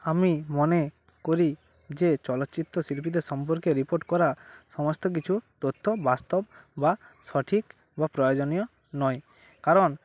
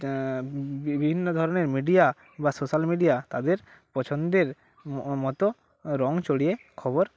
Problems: constant background noise, background conversations at intervals